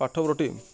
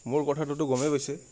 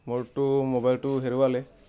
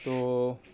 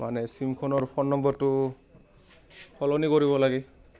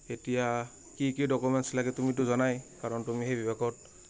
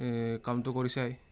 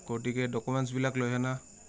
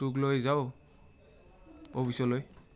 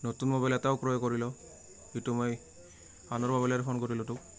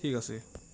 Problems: constant background noise, continuous background conversations